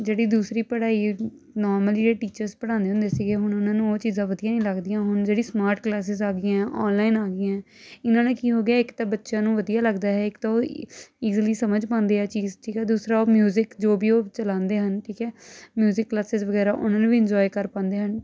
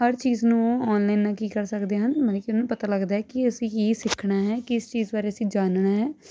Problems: constant background noise